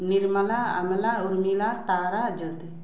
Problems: background sounds at intervals